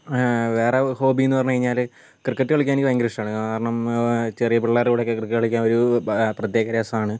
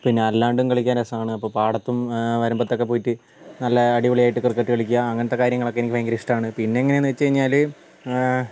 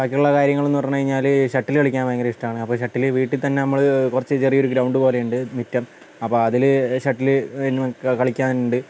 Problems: constant background noise